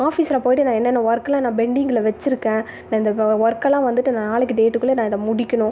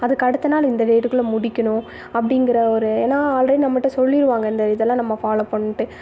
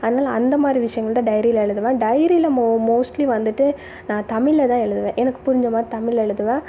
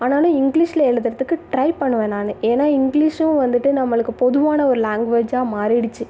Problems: background sounds at intervals